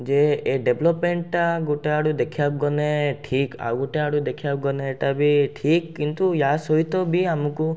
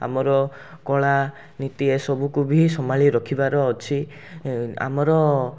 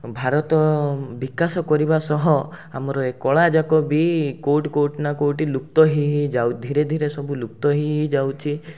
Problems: none marked